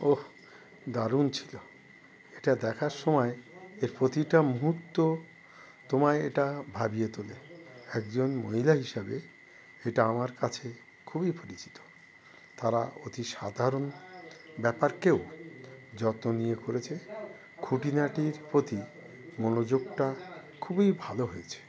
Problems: none marked